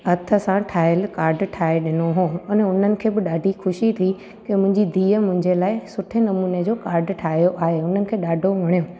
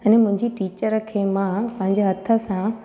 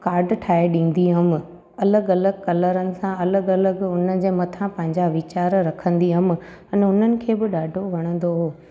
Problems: constant background noise